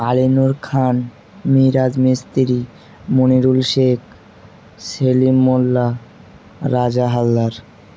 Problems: none marked